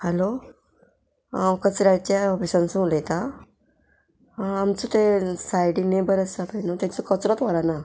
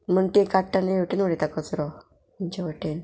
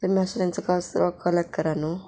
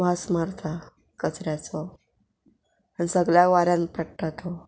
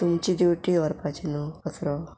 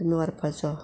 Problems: background sounds at intervals